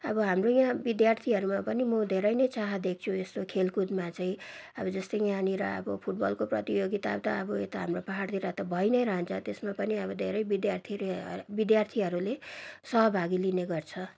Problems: background sounds at intervals